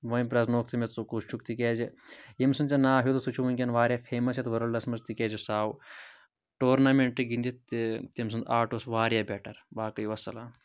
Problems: none marked